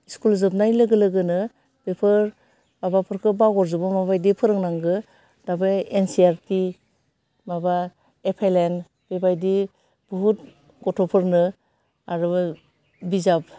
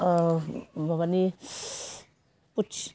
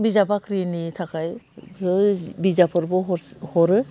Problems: none marked